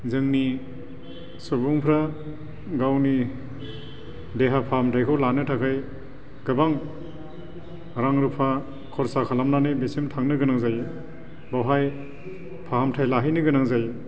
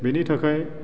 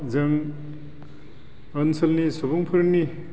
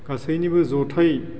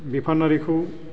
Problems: constant background noise